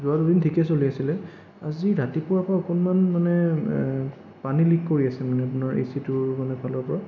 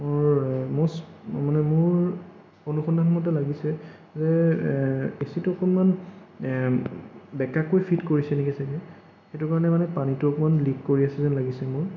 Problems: none marked